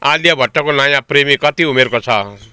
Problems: none marked